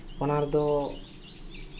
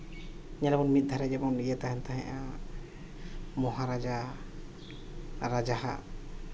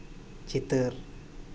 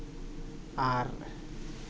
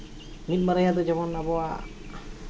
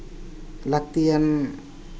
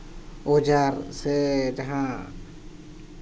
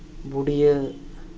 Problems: none marked